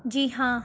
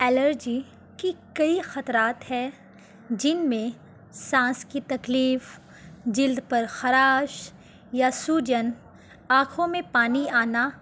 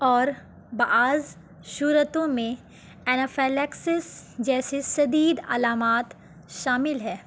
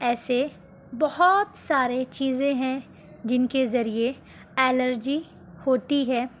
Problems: constant background noise